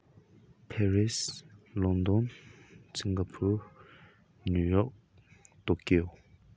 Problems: none marked